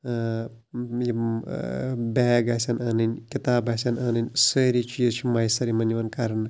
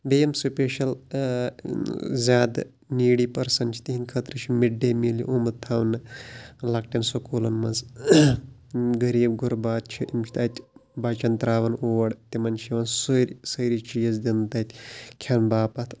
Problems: background sounds at intervals